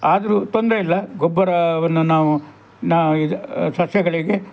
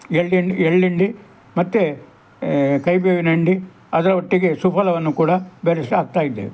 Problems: background conversations at intervals